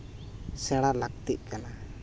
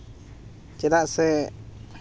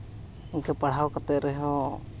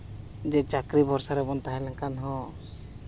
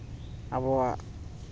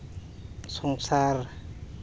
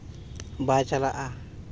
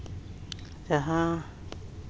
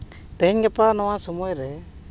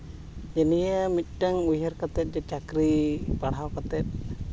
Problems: background sounds at intervals